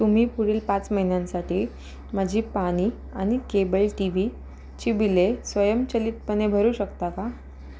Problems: constant background noise